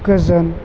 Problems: constant background noise